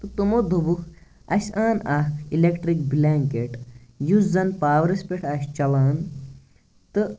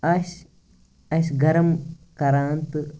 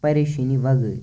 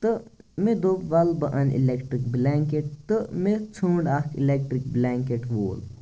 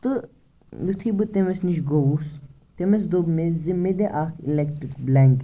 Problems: background sounds at intervals